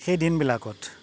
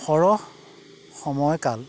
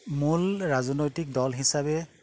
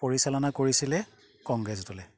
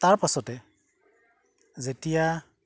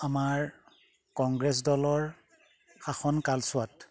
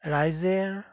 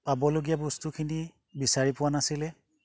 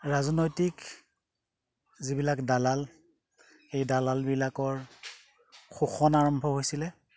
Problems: background sounds at intervals